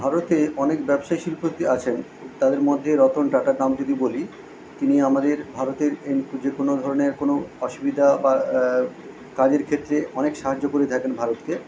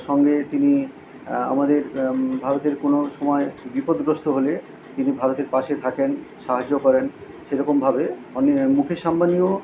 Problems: none marked